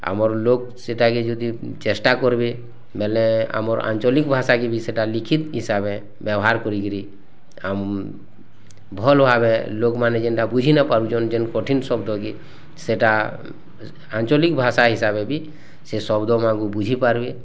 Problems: constant background noise